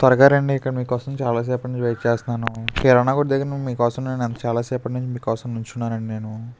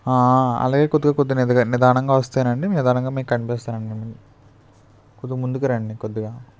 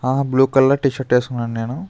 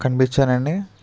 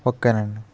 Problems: constant background noise, background conversations at intervals